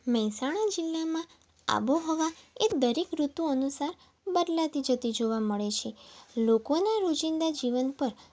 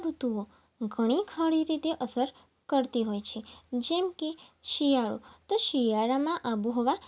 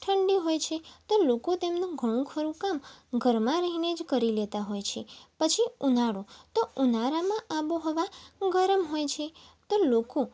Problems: none marked